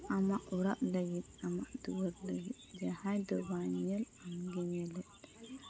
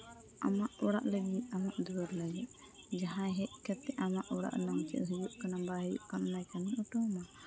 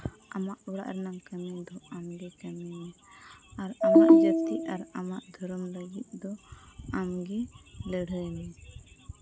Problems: constant background noise